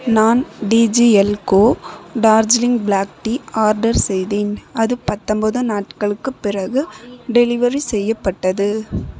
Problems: background conversations at intervals